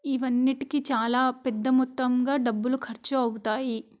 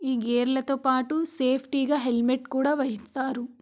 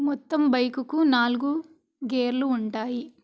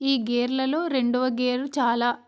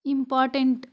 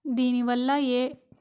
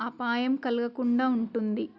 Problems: constant background noise